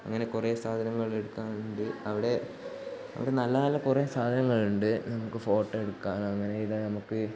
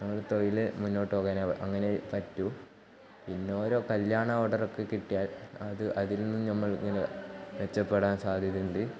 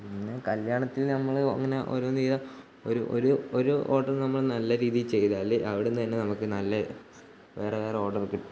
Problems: background sounds at intervals, low volume